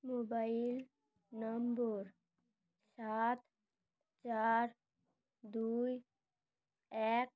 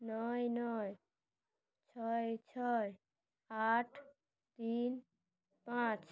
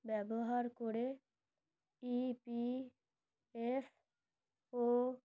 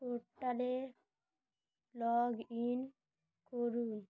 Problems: none marked